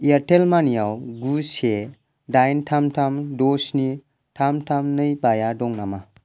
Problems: none marked